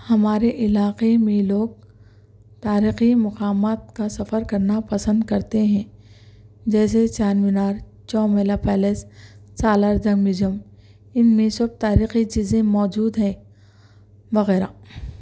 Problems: none marked